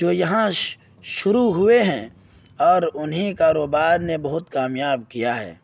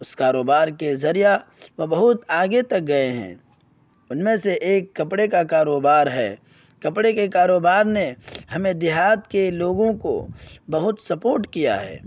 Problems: none marked